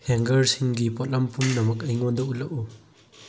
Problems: low volume